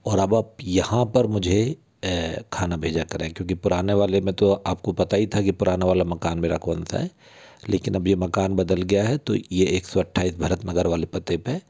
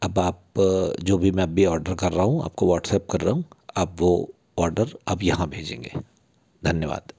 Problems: constant background noise